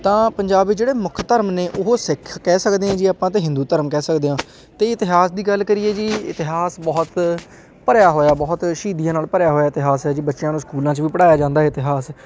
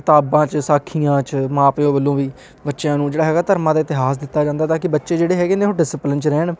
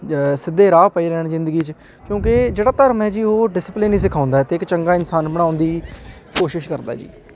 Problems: constant background noise, continuous background conversations